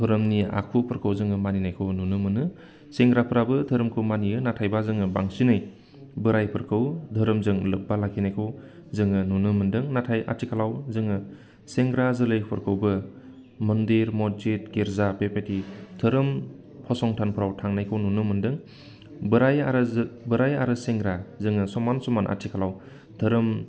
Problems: none marked